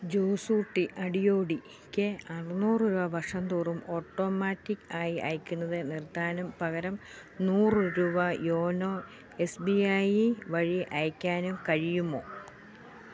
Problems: background sounds at intervals